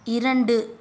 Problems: none marked